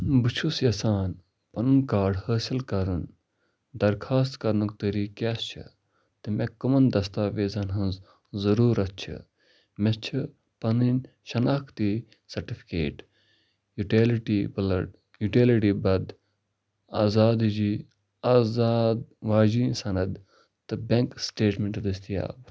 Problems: none marked